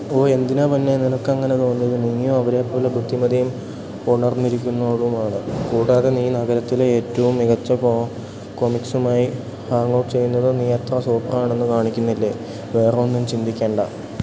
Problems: constant background noise, low volume